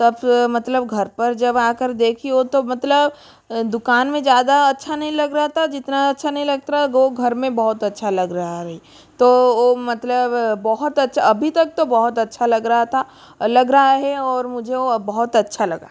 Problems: constant background noise